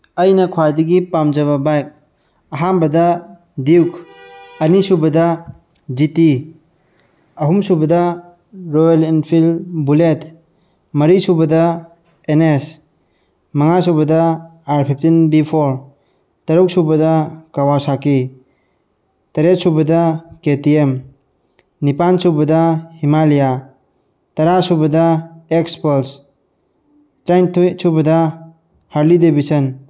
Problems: none marked